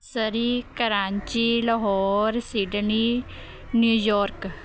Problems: continuous background conversations